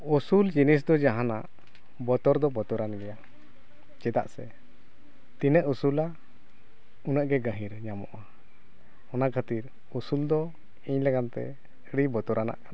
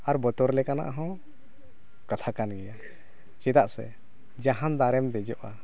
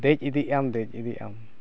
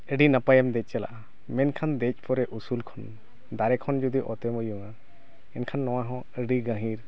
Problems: background conversations at intervals